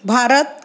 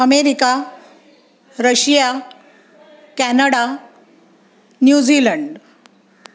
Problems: background sounds at intervals, background conversations at intervals